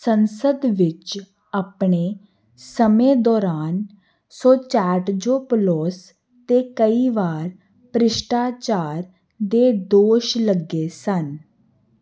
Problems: constant background noise